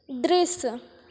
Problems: constant background noise, echo